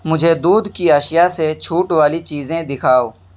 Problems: background sounds at intervals